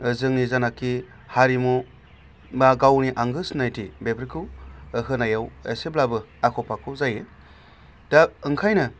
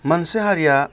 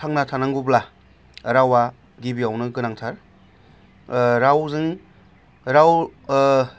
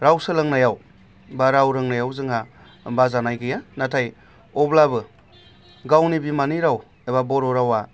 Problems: constant background noise